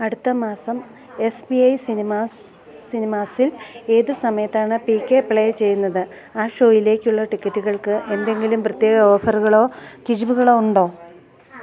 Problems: none marked